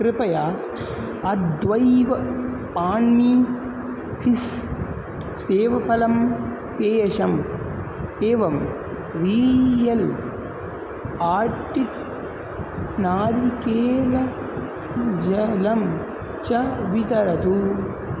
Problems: constant background noise